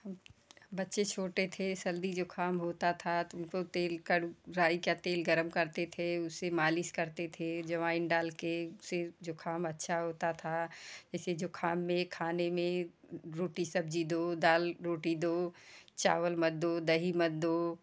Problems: constant background noise, background conversations at intervals